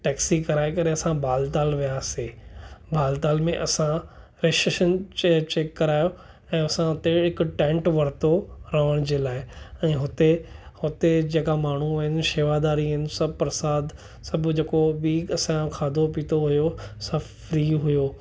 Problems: none marked